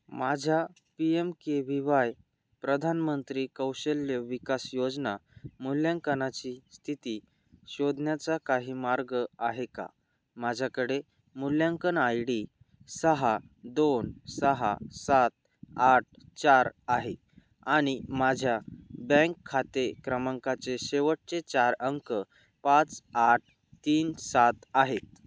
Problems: background sounds at intervals